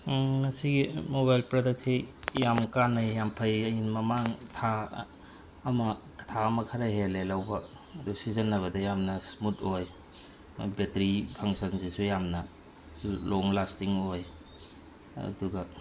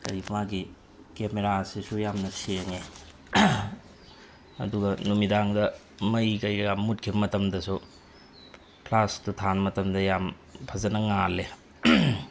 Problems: constant background noise